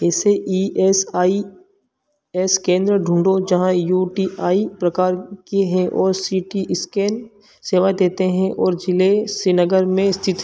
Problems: background sounds at intervals